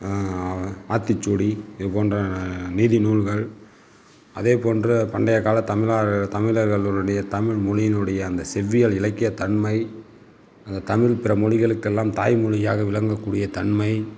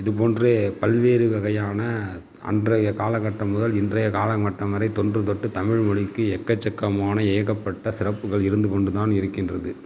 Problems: none marked